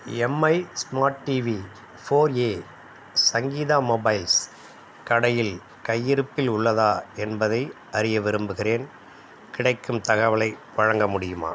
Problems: none marked